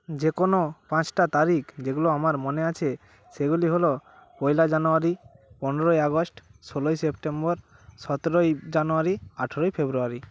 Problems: constant background noise